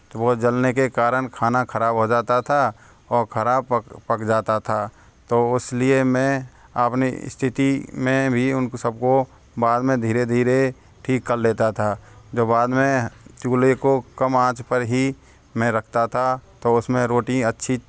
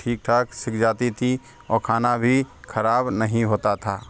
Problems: constant background noise